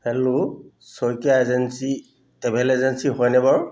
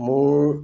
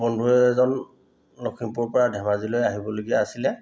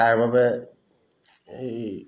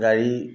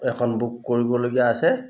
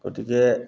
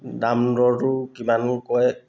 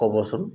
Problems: none marked